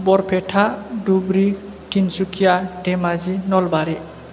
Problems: none marked